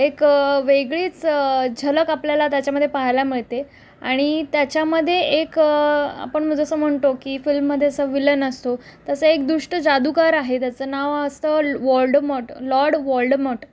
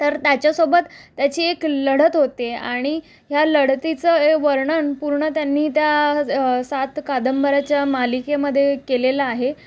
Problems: constant background noise